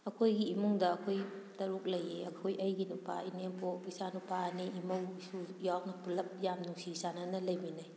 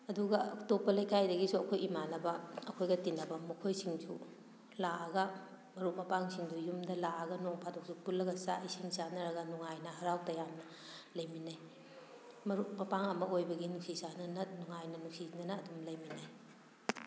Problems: background sounds at intervals